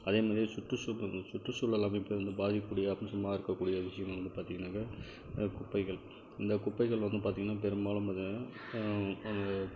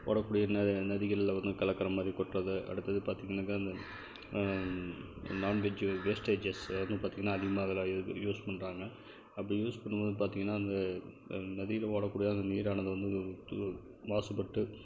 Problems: none marked